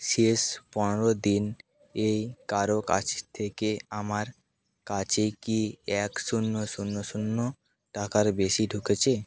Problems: background sounds at intervals